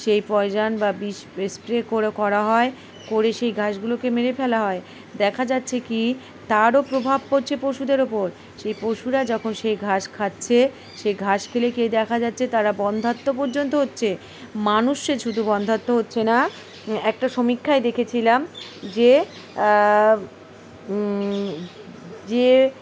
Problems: constant background noise, background conversations at intervals